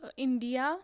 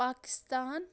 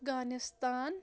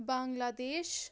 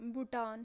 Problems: background sounds at intervals